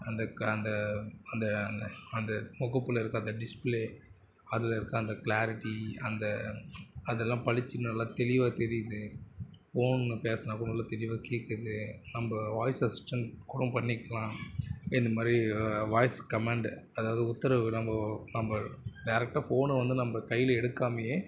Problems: constant background noise, continuous background conversations